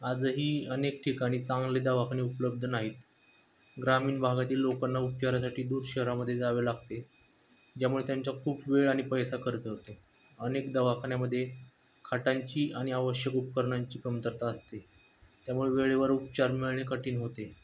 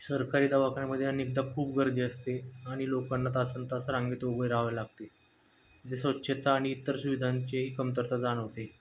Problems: background sounds at intervals